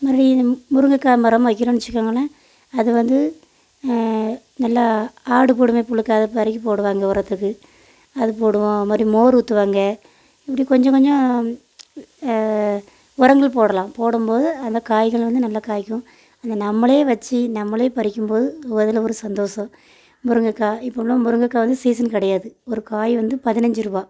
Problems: none marked